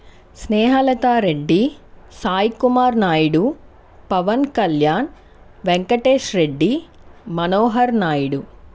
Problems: none marked